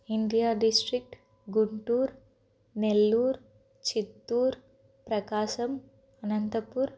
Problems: constant background noise